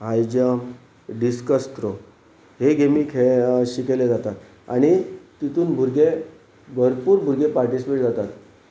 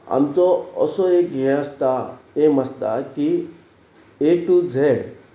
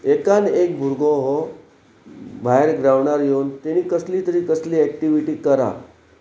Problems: none marked